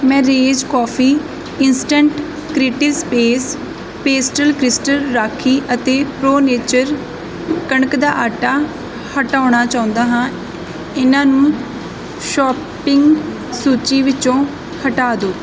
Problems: background sounds at intervals